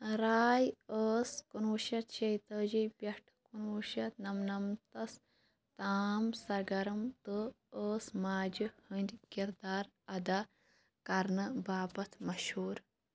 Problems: constant background noise